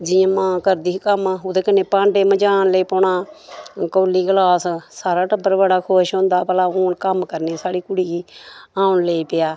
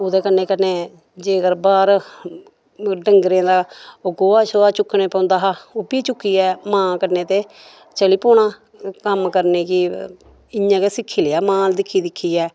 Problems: background sounds at intervals